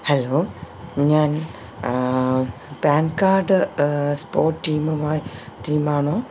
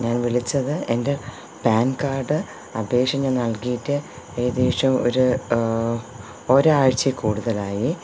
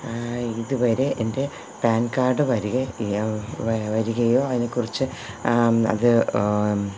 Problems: none marked